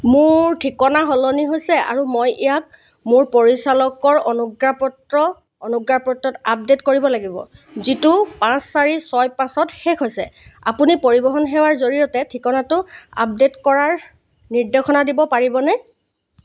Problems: constant background noise